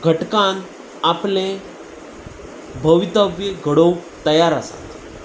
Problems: constant background noise